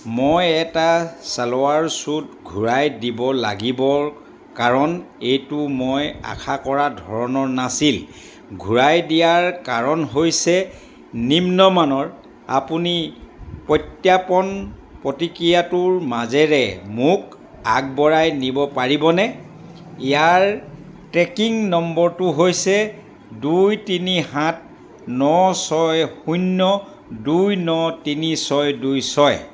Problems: constant background noise